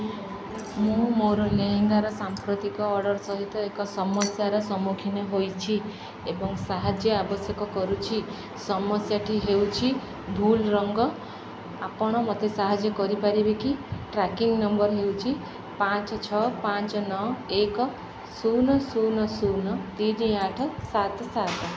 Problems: background sounds at intervals